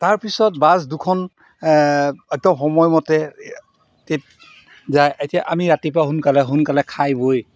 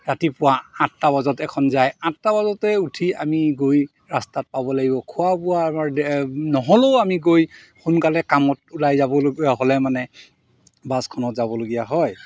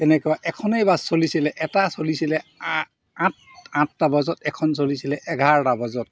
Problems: background sounds at intervals